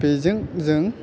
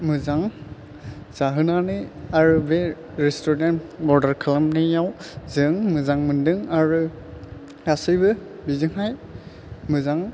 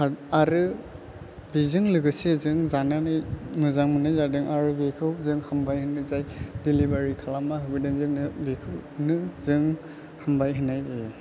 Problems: low volume